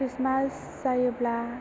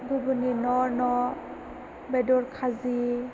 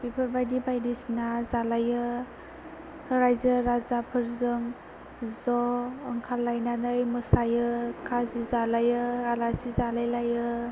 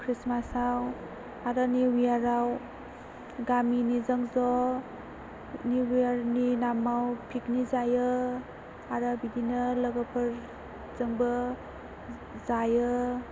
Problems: constant background noise